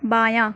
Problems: none marked